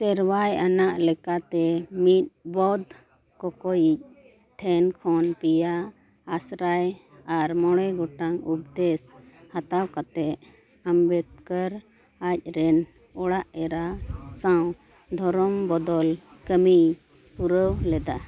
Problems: none marked